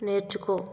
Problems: none marked